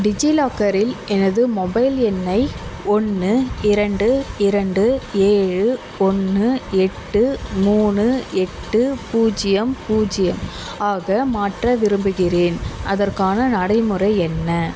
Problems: constant background noise